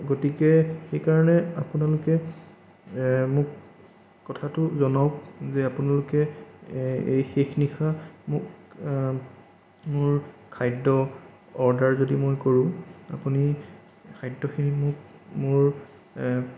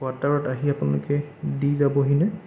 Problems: none marked